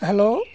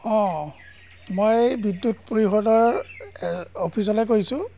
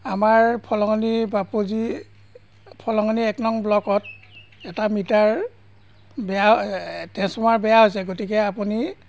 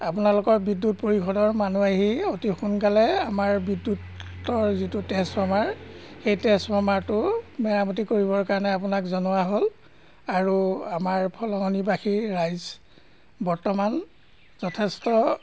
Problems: constant background noise